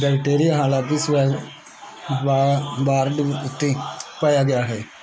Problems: none marked